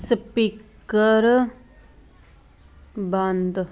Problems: none marked